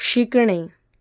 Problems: none marked